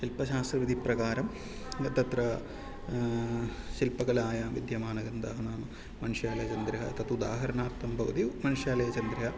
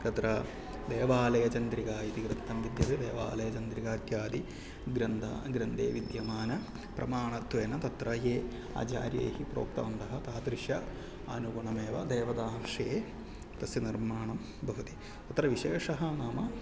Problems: low volume